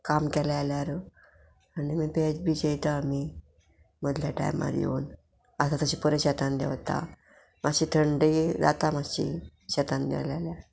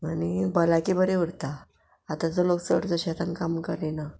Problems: background sounds at intervals